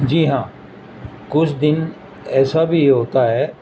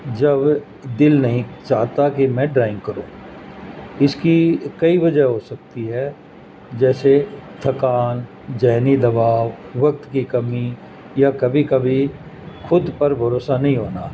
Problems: constant background noise